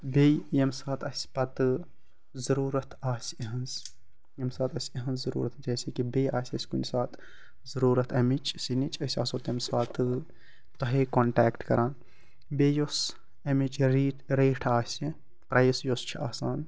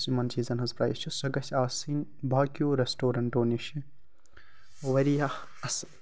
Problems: constant background noise